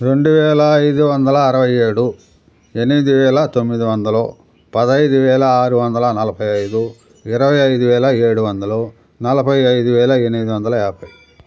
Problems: background sounds at intervals